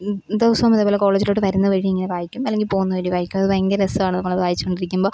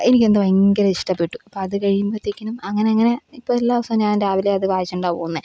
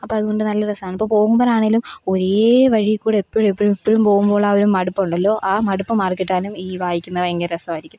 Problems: none marked